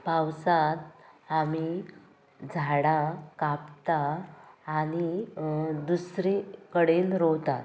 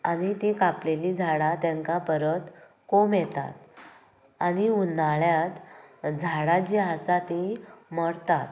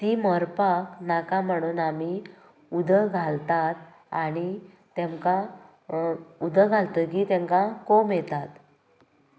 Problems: none marked